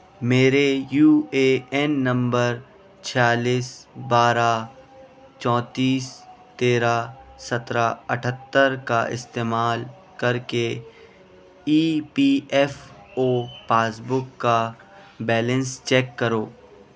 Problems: constant background noise, background conversations at intervals